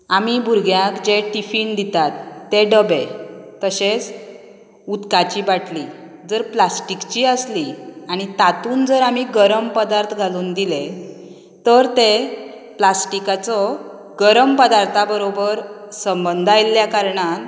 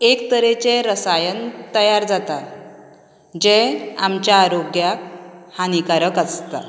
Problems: background sounds at intervals